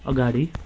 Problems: none marked